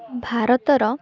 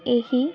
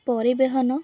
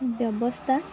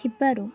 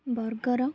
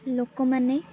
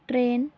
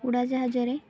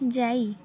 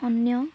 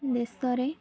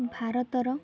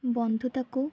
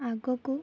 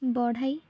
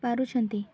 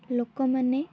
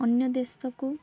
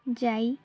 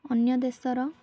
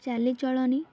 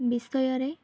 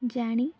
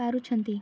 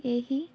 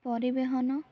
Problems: background sounds at intervals, background conversations at intervals